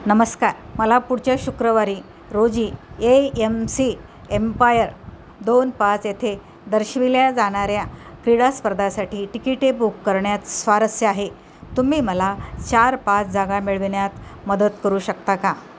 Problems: constant background noise